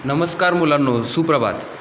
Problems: constant background noise